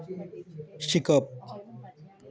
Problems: none marked